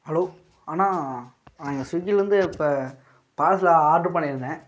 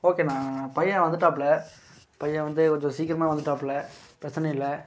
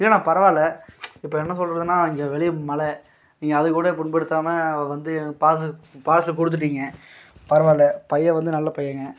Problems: background sounds at intervals